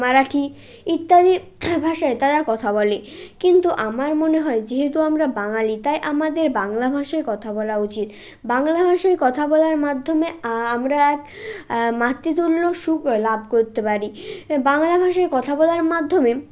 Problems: background sounds at intervals